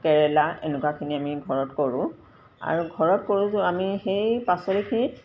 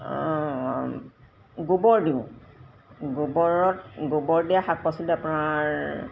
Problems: background sounds at intervals